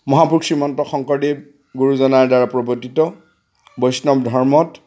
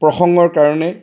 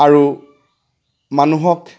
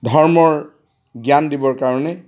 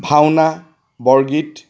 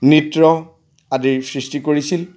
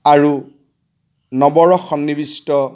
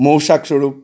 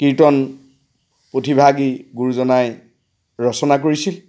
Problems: background sounds at intervals